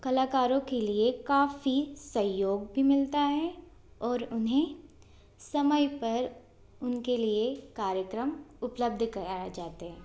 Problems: constant background noise